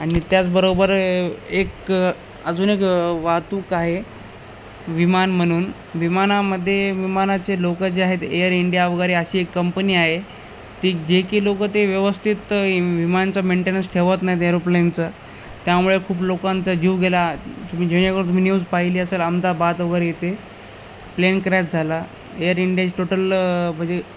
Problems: none marked